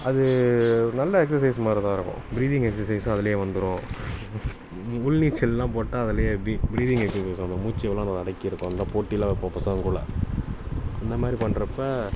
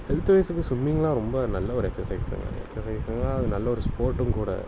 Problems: background sounds at intervals